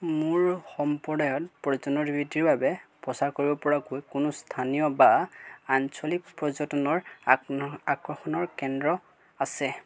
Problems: background sounds at intervals